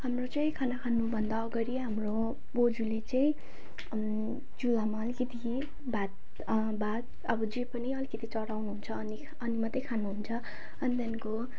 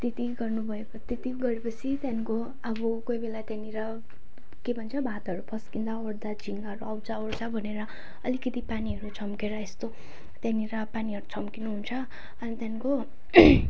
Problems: none marked